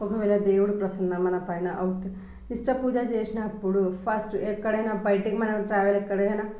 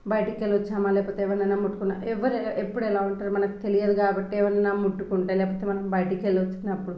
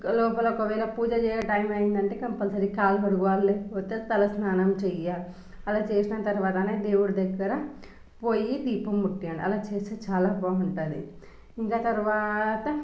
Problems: background sounds at intervals